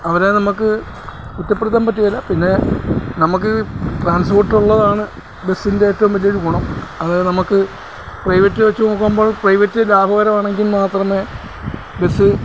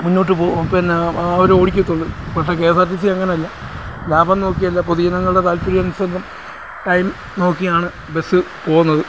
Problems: none marked